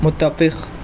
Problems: constant background noise